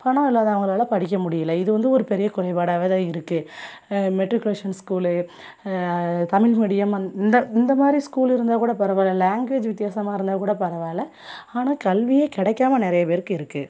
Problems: none marked